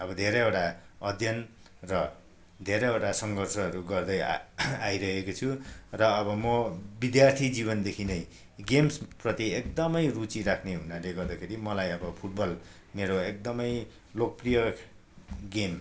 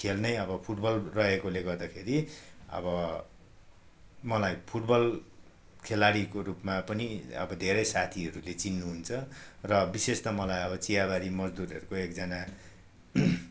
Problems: none marked